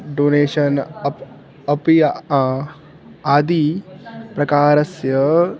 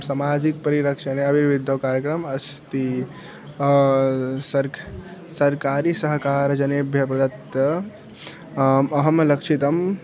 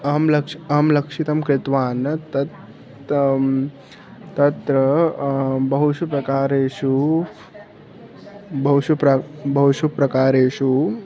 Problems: background sounds at intervals